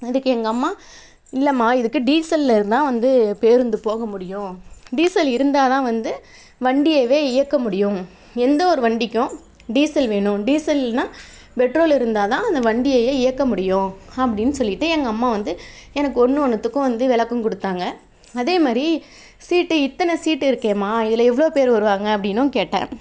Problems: none marked